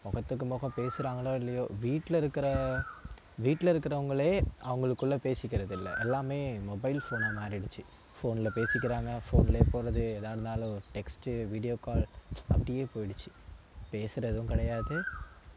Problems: constant background noise